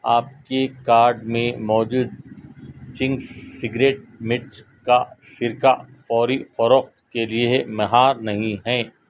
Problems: constant background noise